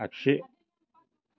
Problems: constant background noise